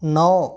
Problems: none marked